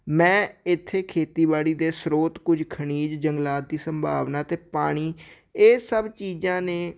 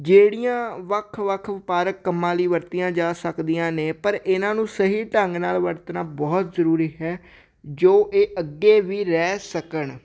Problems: none marked